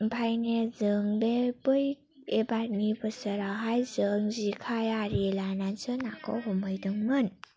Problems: low volume